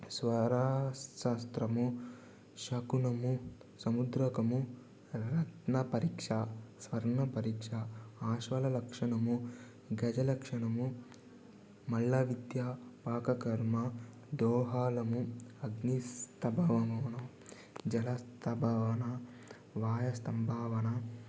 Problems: low volume